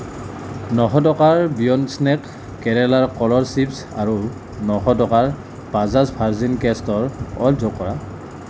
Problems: constant background noise